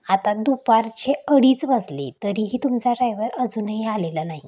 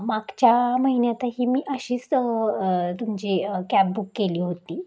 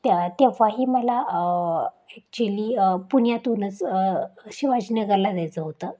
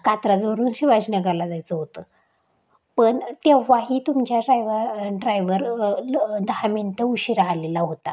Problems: constant background noise, background conversations at intervals